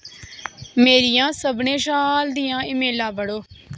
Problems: background sounds at intervals